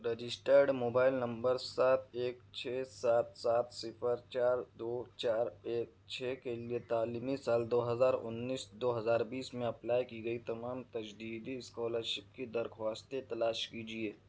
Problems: none marked